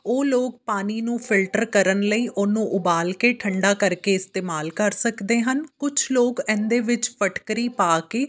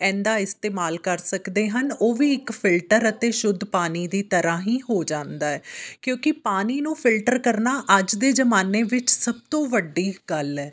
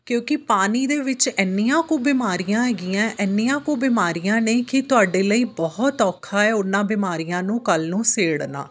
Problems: background sounds at intervals